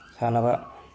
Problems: low volume